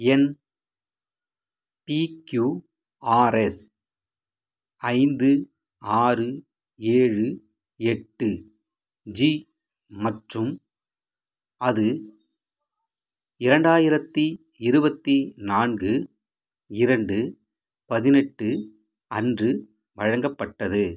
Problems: none marked